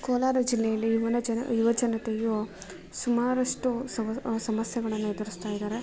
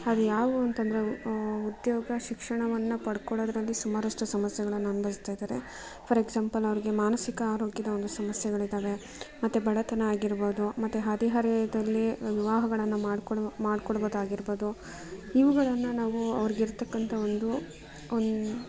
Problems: background sounds at intervals